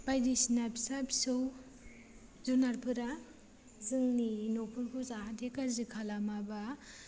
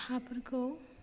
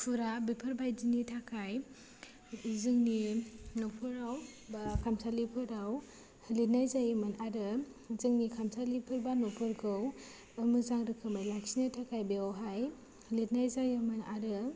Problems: low volume